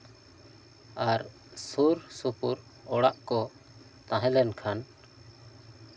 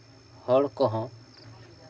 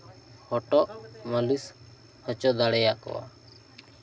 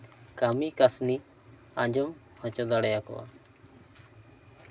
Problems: background conversations at intervals